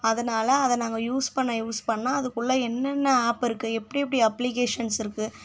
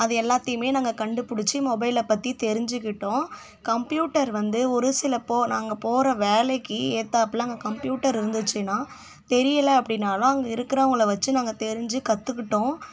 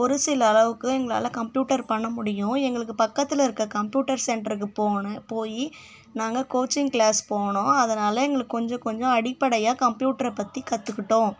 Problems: none marked